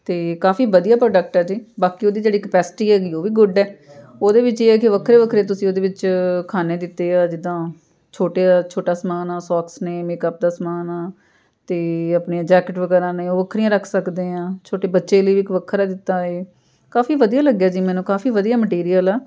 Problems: none marked